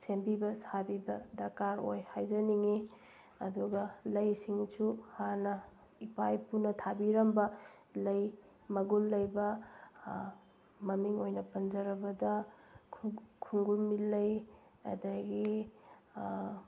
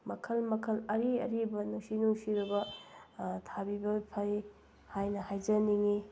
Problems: background sounds at intervals